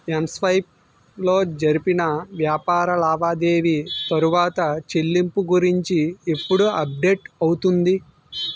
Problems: background sounds at intervals